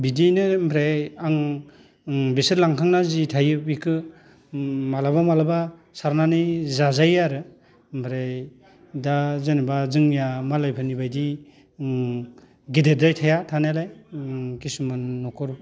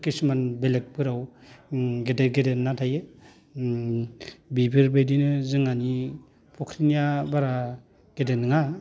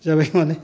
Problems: none marked